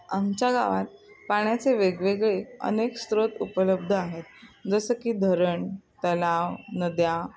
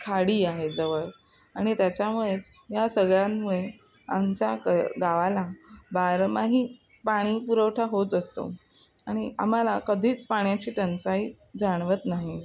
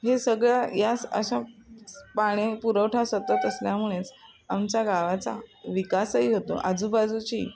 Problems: none marked